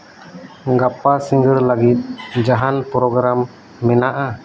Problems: none marked